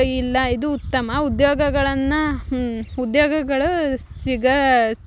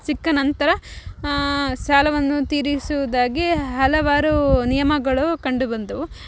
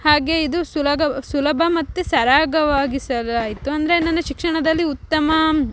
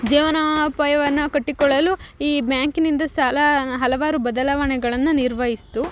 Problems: none marked